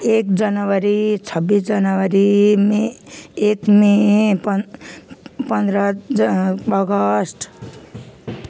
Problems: constant background noise